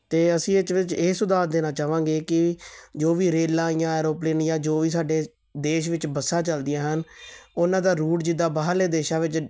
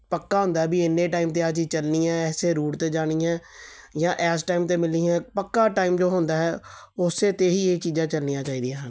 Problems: background sounds at intervals